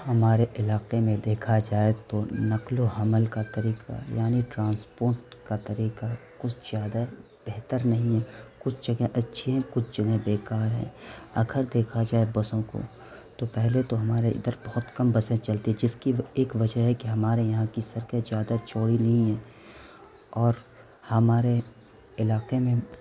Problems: constant background noise